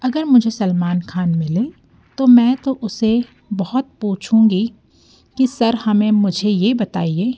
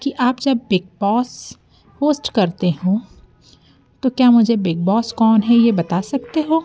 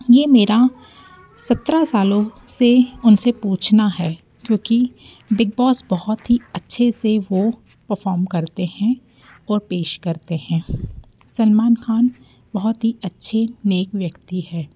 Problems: background sounds at intervals